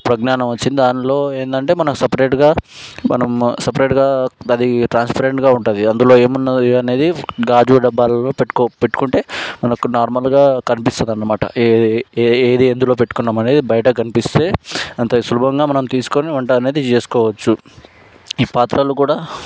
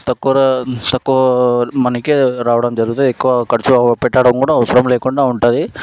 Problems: background sounds at intervals